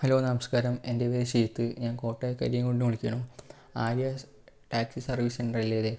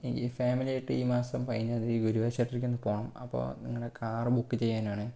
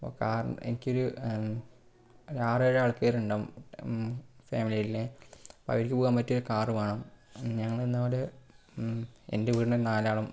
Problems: low volume